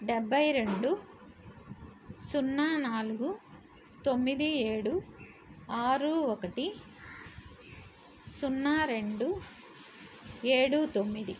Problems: constant background noise